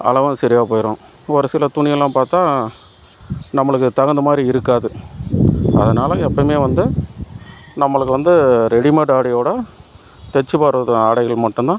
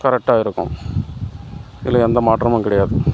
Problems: constant background noise